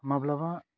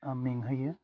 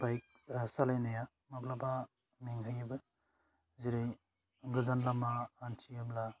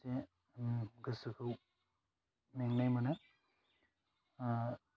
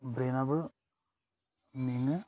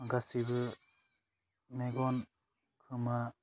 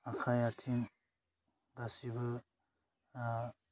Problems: low volume